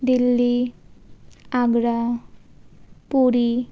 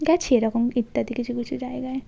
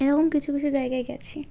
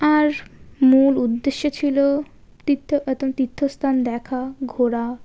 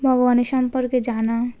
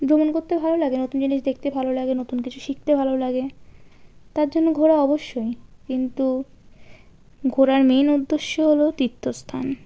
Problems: none marked